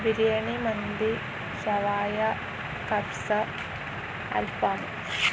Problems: none marked